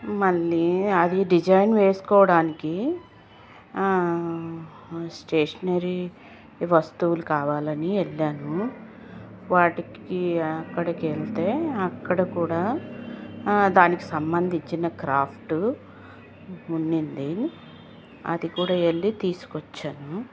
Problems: constant background noise